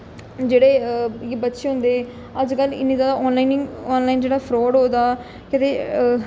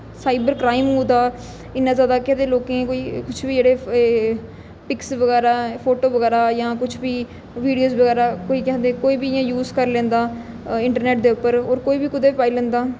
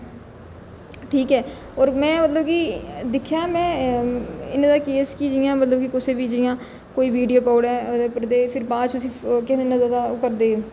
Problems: echo